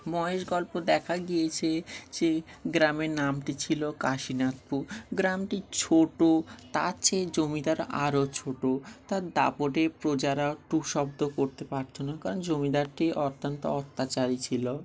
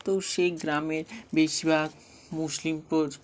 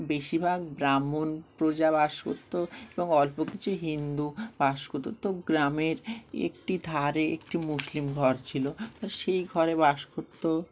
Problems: none marked